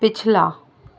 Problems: constant background noise